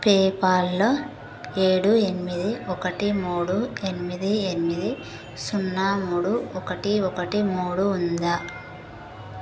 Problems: constant background noise